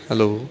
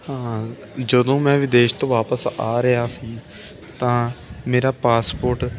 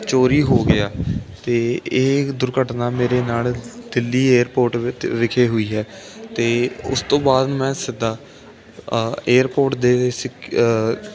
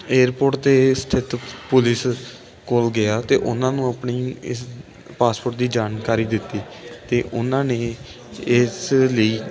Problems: continuous background conversations